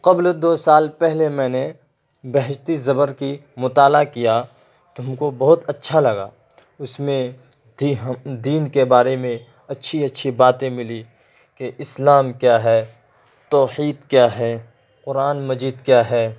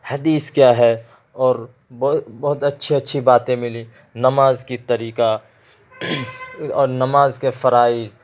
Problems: constant background noise